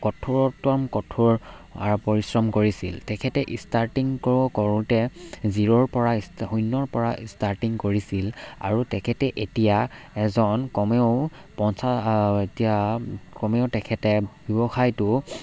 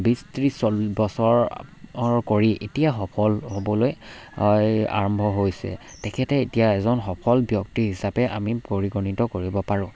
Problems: none marked